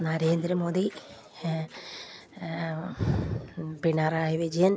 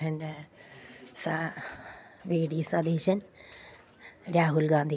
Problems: none marked